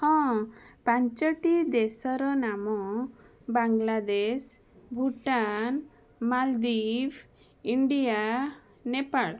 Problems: background sounds at intervals